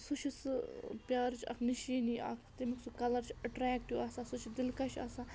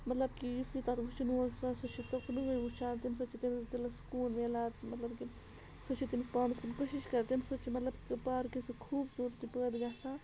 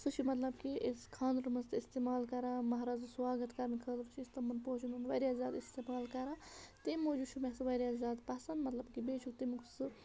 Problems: constant background noise, background conversations at intervals